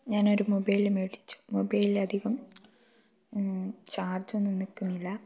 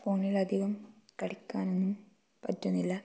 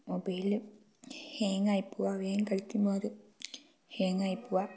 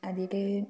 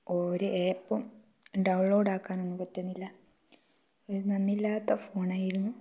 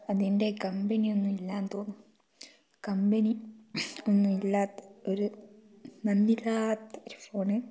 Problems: low volume